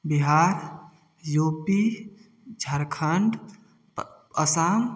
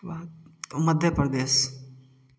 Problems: background sounds at intervals